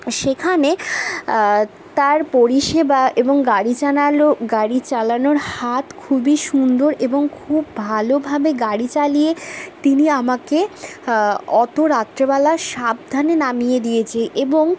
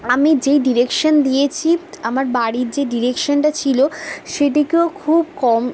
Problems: constant background noise